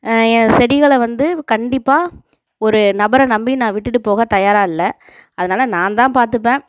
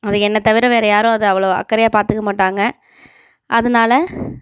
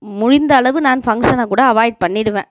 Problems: background sounds at intervals